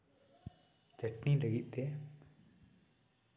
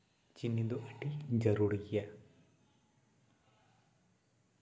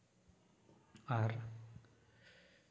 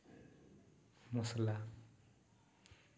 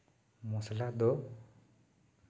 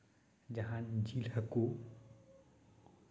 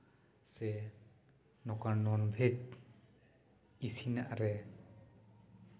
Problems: constant background noise, echo